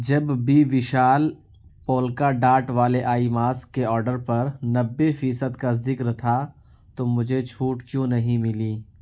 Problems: none marked